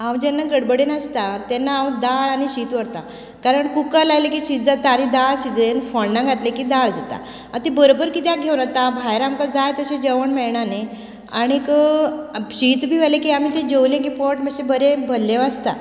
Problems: none marked